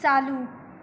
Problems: background sounds at intervals